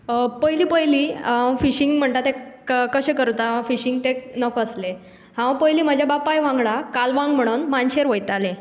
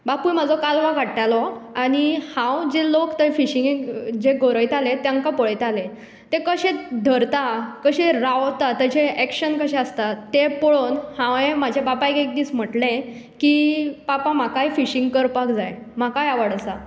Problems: constant background noise